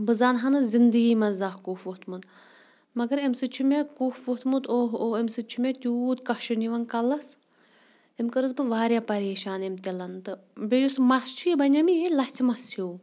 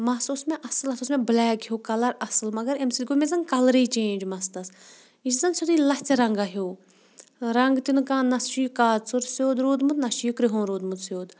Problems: none marked